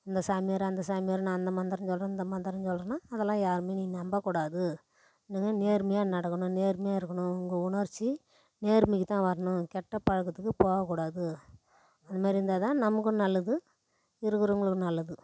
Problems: none marked